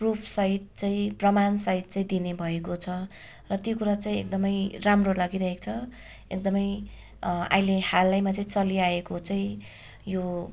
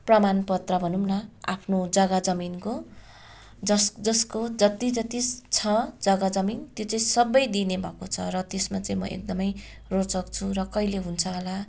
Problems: background sounds at intervals